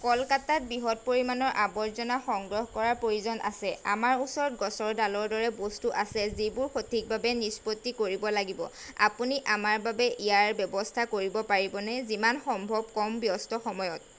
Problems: none marked